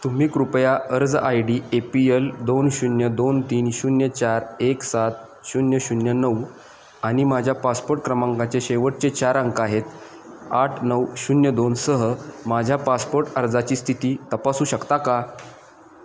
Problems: none marked